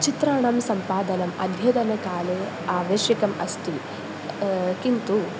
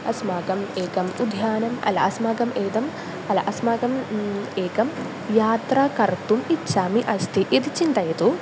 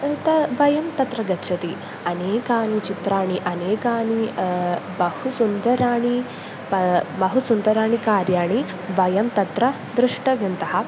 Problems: constant background noise